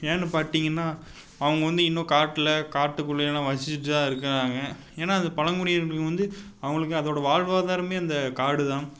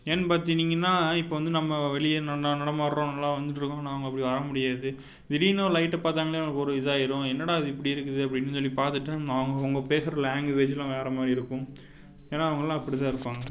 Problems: background sounds at intervals